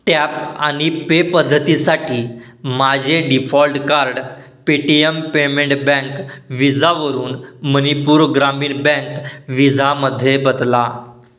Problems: none marked